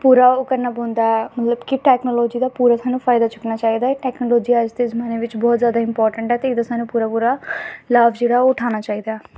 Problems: none marked